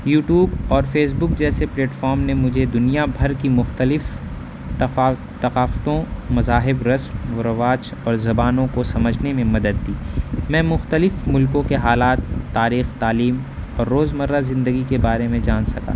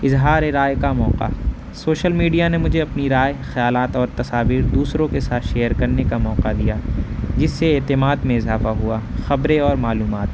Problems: background sounds at intervals